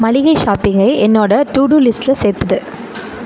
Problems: none marked